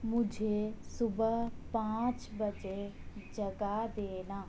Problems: none marked